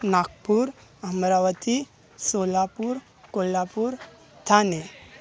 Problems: constant background noise, continuous background conversations